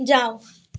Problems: none marked